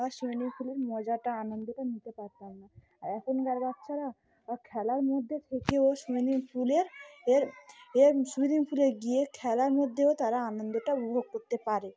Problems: background sounds at intervals